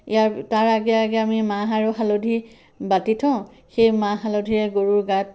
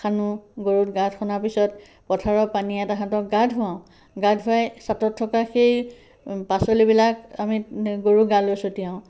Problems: none marked